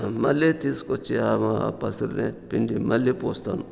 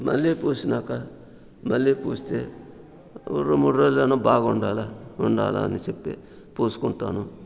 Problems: background sounds at intervals, background conversations at intervals